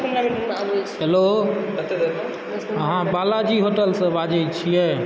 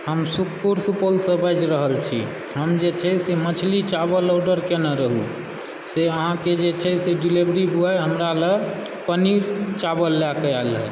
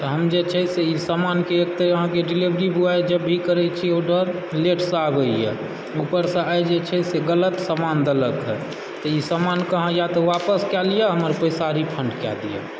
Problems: background conversations at intervals